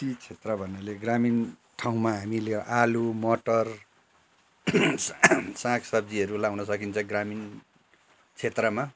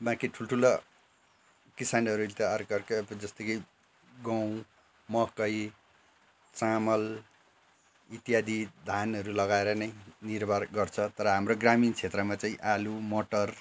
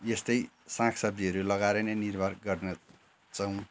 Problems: constant background noise